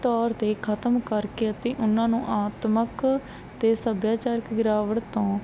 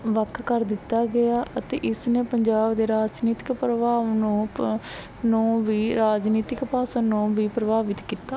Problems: none marked